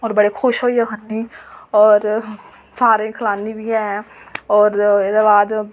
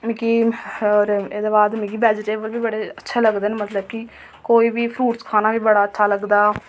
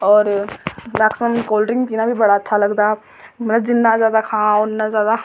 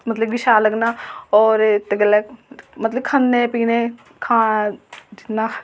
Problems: constant background noise